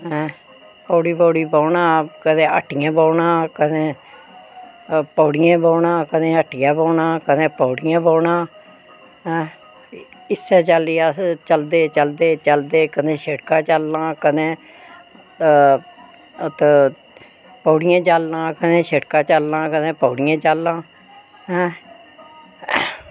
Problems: none marked